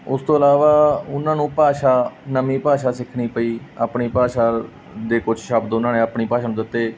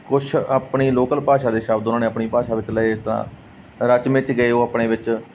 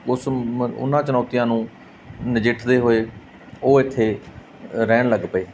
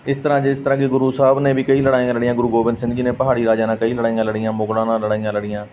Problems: none marked